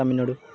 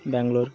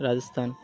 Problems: constant background noise, continuous background conversations